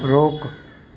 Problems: constant background noise